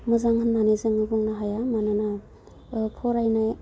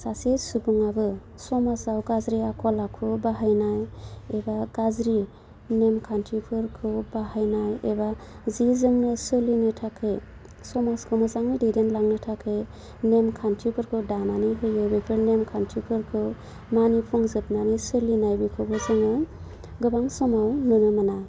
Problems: low volume